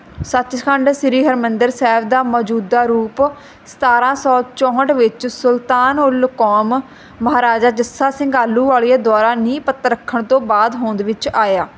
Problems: constant background noise